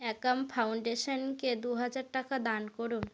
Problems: background sounds at intervals